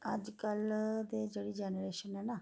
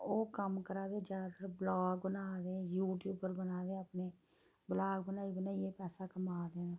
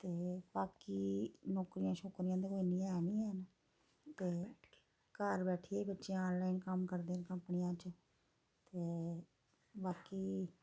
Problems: background sounds at intervals, low volume